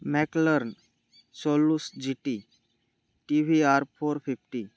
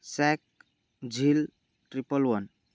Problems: none marked